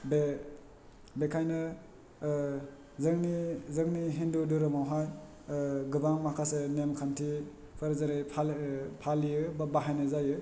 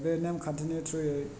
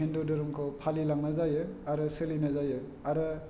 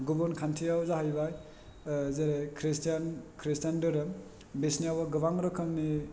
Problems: none marked